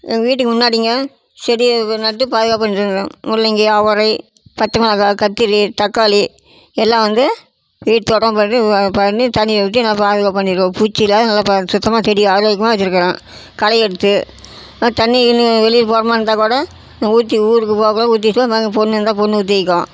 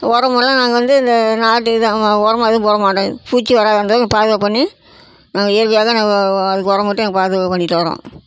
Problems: constant background noise